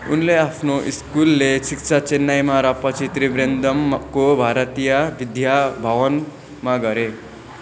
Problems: echo